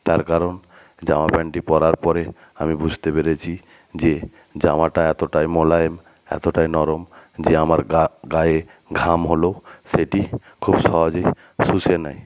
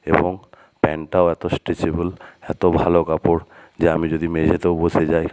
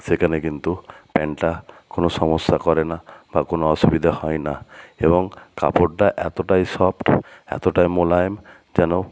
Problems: none marked